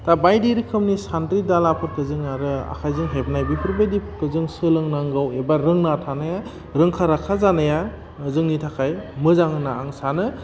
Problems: low volume